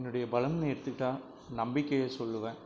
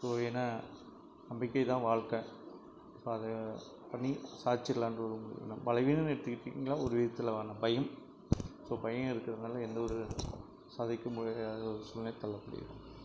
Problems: low volume